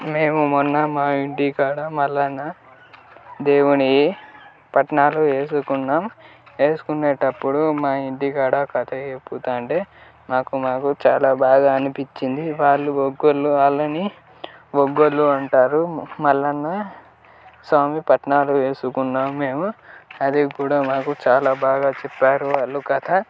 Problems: constant background noise, background conversations at intervals